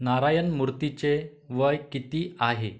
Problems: background sounds at intervals